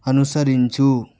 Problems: none marked